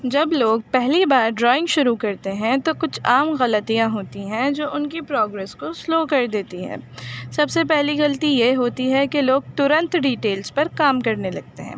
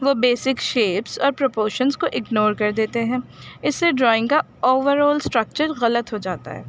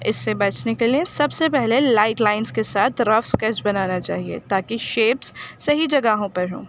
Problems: background sounds at intervals